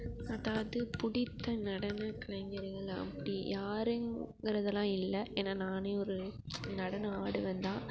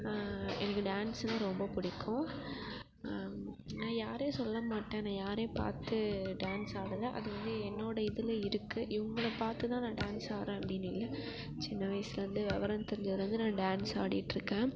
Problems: constant background noise, continuous background conversations